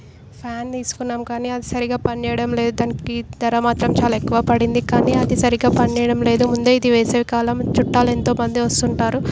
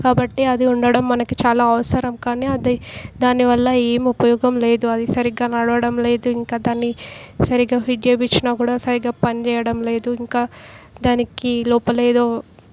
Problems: background sounds at intervals